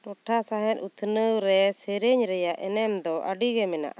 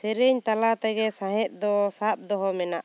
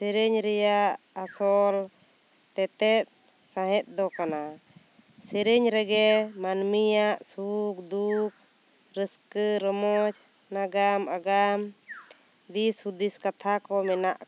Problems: constant background noise